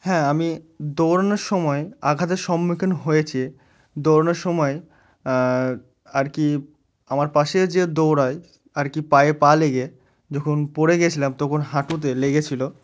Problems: none marked